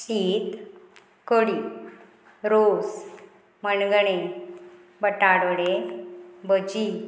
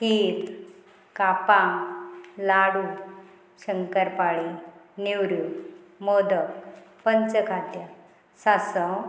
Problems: constant background noise